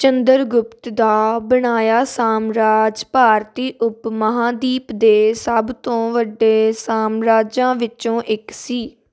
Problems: constant background noise